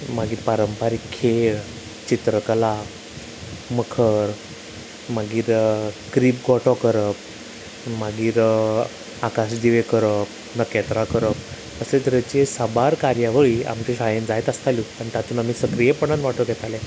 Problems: constant background noise